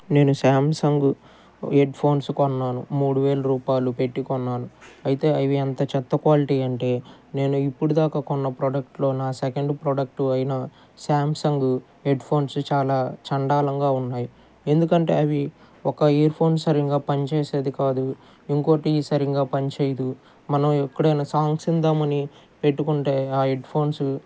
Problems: background conversations at intervals